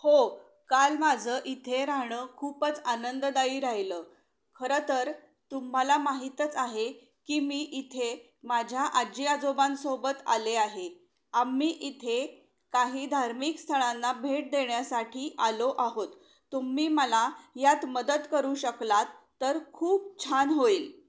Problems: background sounds at intervals